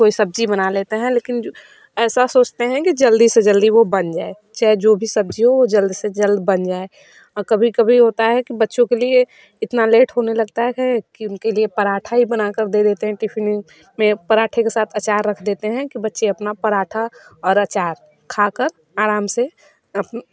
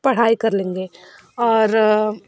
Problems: background sounds at intervals, background conversations at intervals